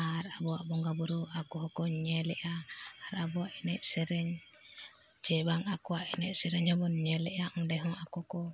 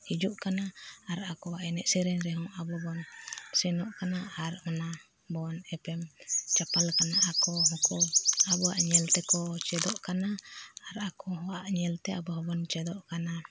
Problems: none marked